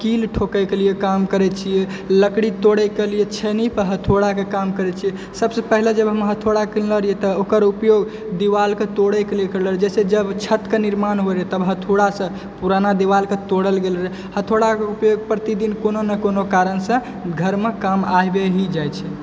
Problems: background sounds at intervals